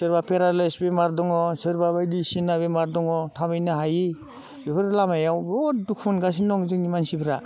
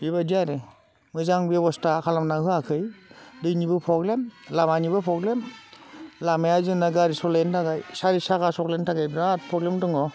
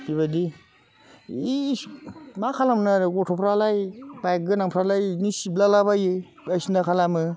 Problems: constant background noise